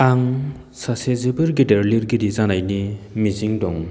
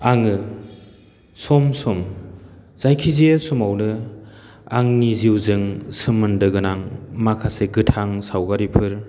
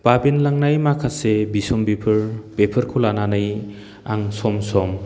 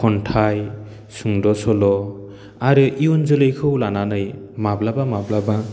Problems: constant background noise